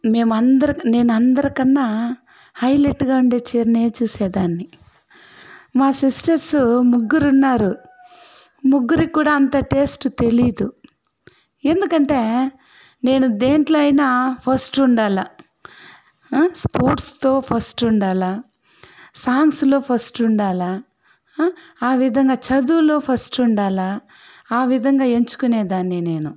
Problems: background sounds at intervals